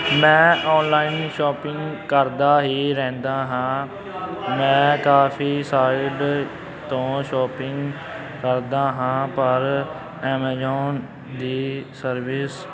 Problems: constant background noise, continuous background conversations